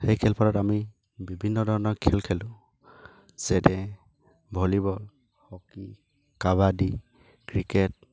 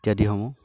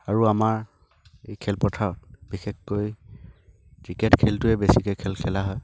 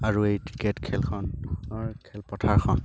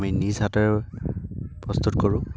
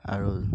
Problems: low volume